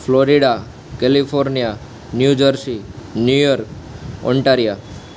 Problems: none marked